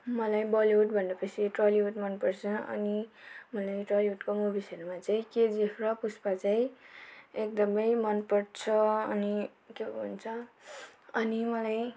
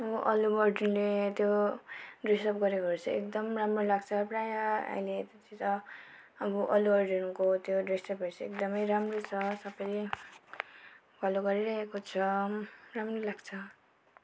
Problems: background sounds at intervals